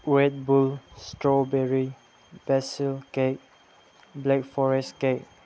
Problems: background sounds at intervals